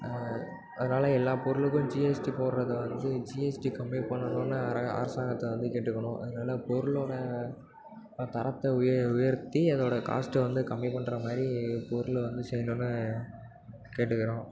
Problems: constant background noise